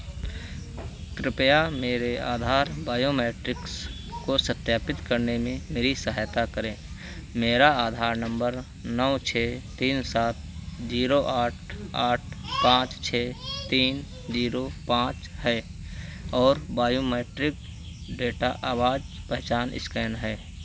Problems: constant background noise